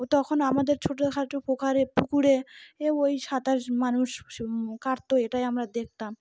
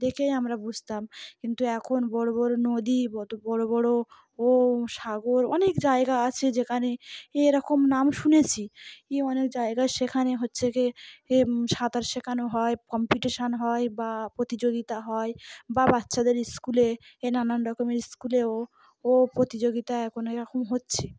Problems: background sounds at intervals